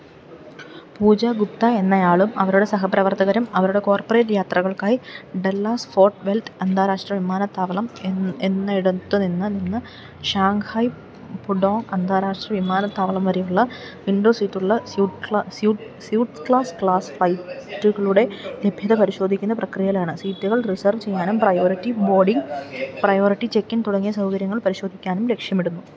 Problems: none marked